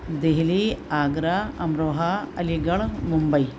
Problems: constant background noise